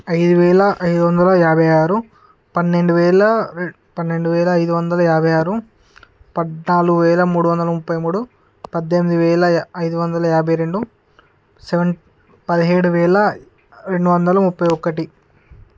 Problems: constant background noise